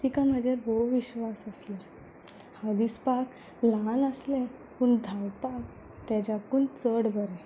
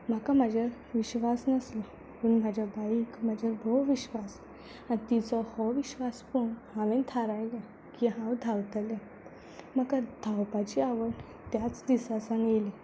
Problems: constant background noise